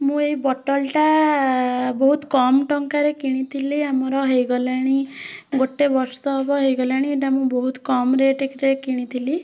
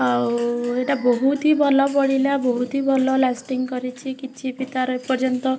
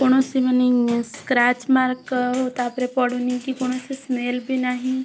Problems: constant background noise, continuous background conversations